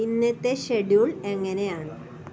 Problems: constant background noise